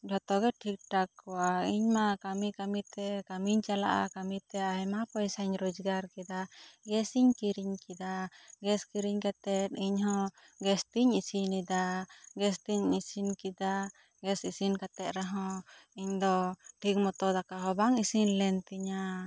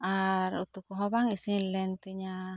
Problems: low volume